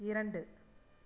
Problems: low volume